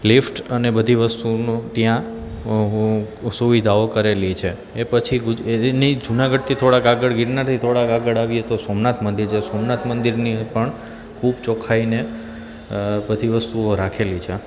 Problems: constant background noise